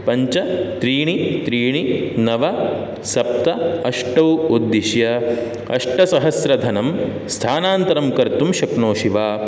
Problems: none marked